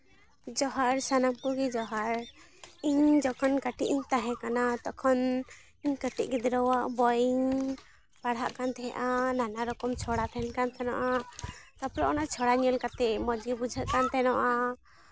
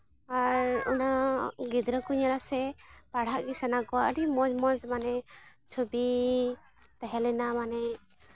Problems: background sounds at intervals, continuous background conversations